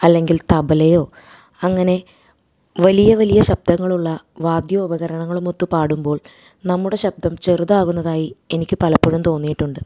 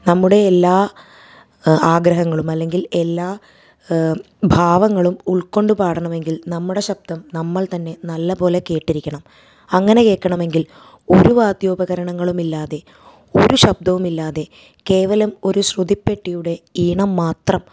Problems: none marked